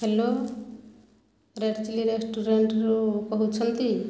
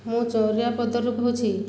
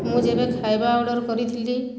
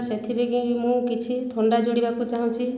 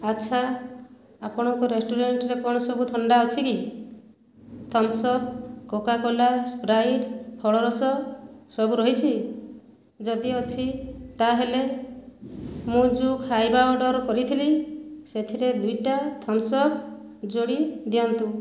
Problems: none marked